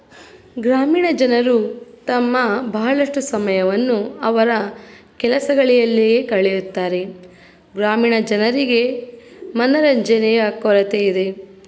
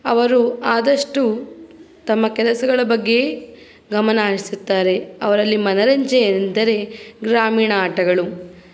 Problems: background sounds at intervals